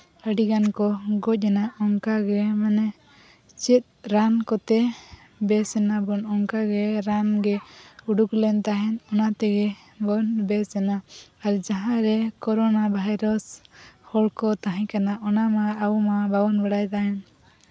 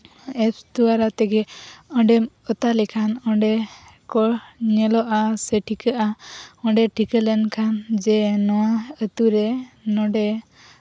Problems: none marked